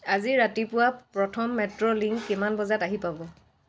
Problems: background sounds at intervals